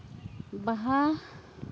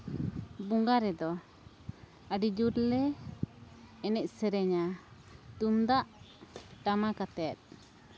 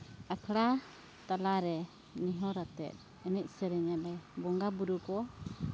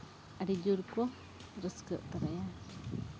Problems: none marked